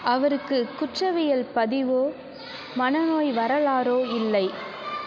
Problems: continuous background conversations